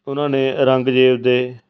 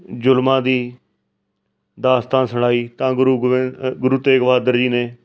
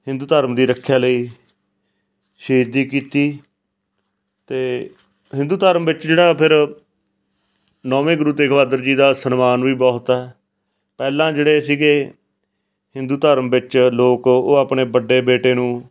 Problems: background sounds at intervals